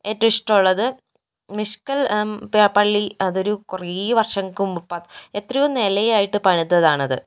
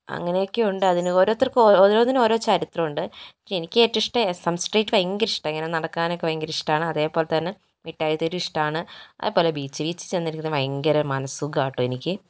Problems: none marked